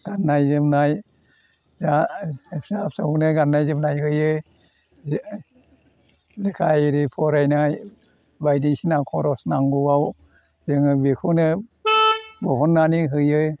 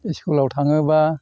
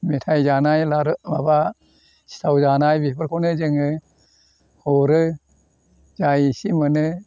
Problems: none marked